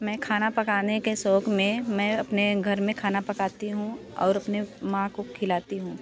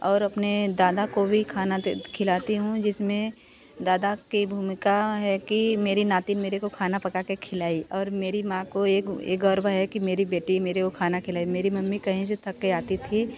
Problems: continuous background conversations